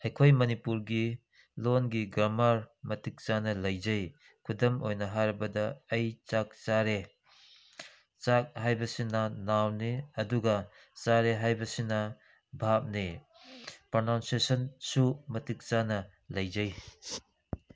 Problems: background sounds at intervals